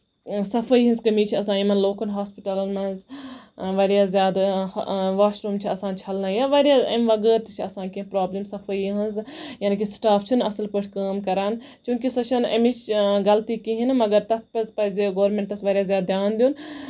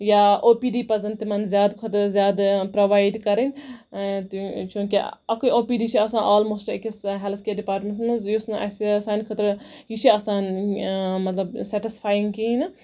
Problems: none marked